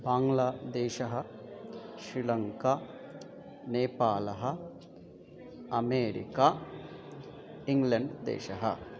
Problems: continuous background conversations